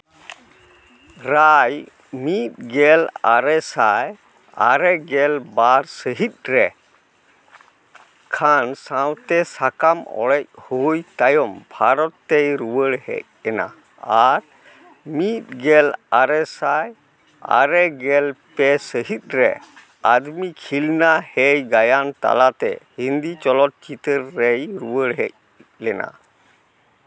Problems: constant background noise